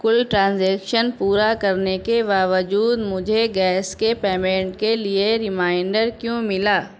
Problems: background sounds at intervals